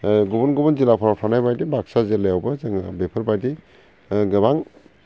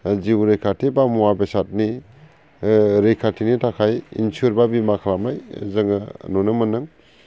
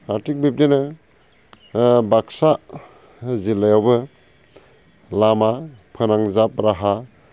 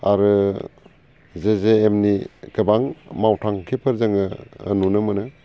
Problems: constant background noise